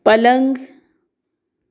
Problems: background sounds at intervals